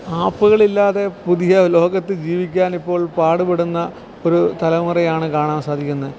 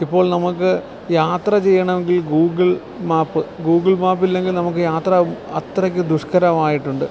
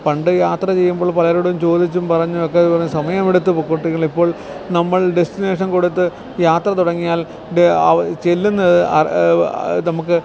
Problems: background sounds at intervals